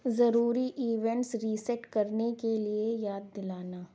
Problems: none marked